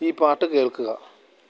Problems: low volume